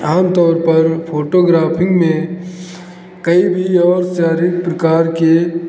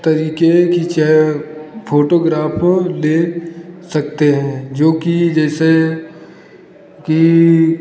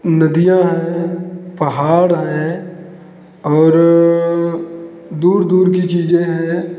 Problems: none marked